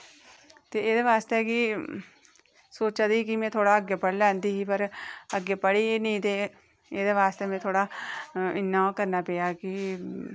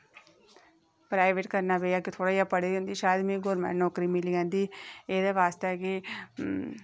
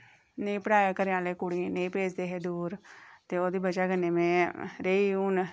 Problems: echo